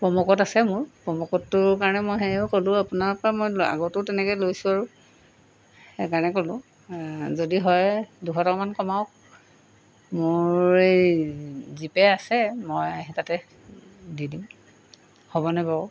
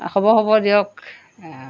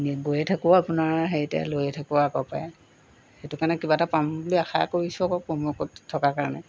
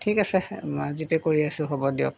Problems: background sounds at intervals